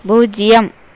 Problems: none marked